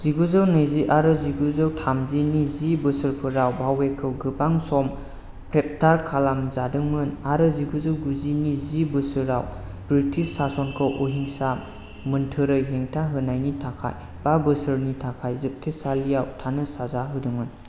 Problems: none marked